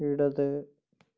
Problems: low volume